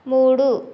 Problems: none marked